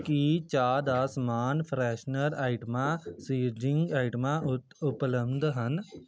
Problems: none marked